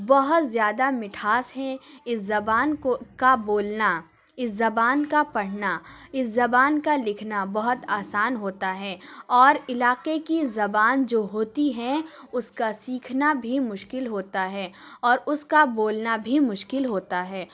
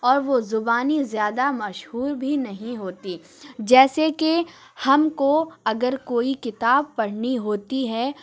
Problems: background sounds at intervals